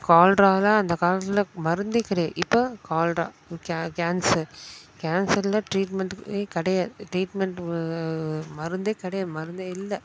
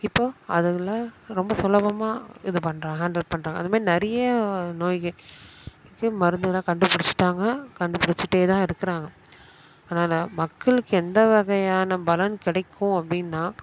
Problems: constant background noise